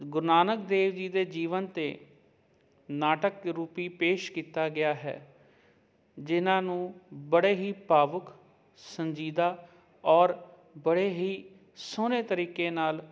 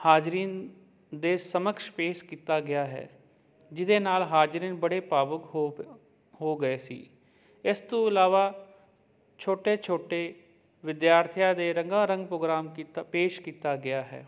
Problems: none marked